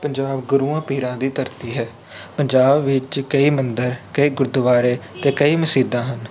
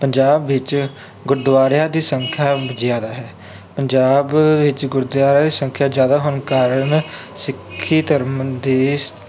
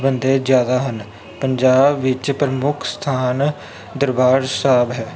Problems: background sounds at intervals